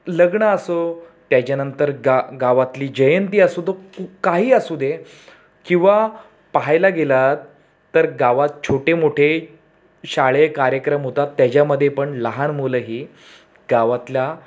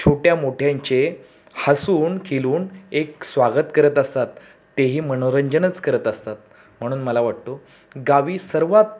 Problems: background sounds at intervals